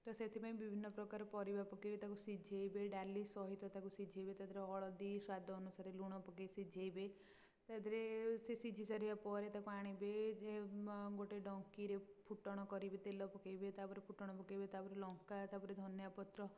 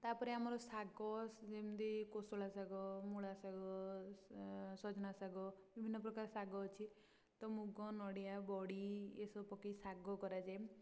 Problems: low volume